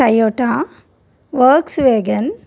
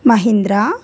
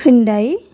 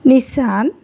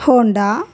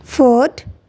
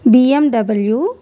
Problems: none marked